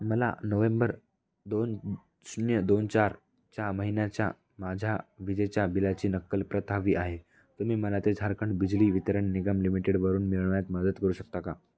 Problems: background sounds at intervals, background conversations at intervals